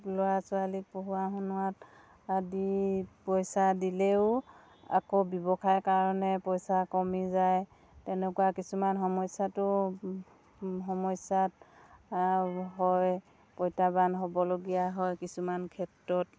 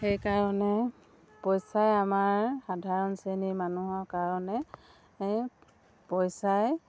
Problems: none marked